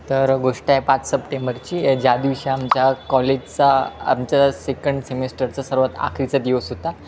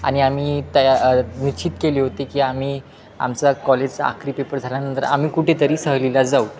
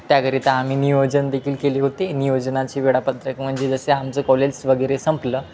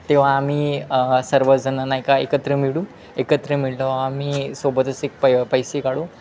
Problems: constant background noise, background conversations at intervals